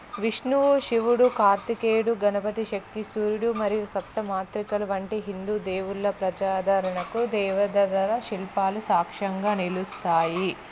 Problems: constant background noise